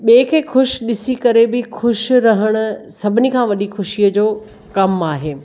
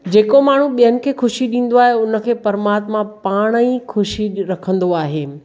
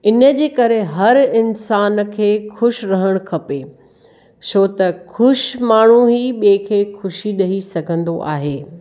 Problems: none marked